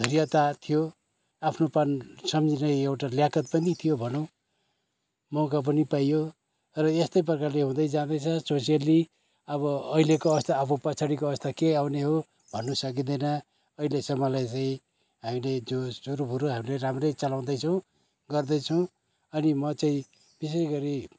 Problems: none marked